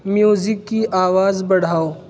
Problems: constant background noise